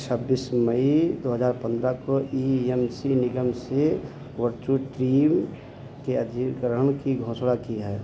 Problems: constant background noise, low volume